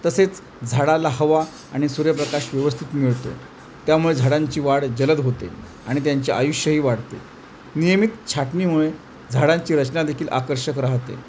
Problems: constant background noise